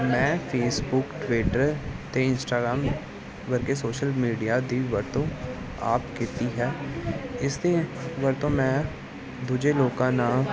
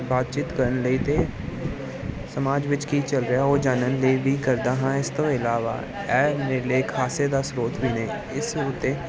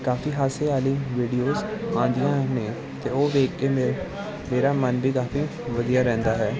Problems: constant background noise